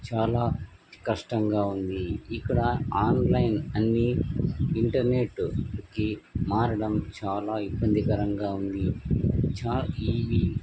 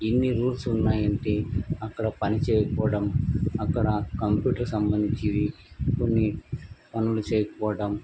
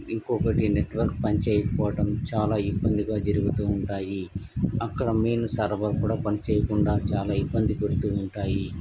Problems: background sounds at intervals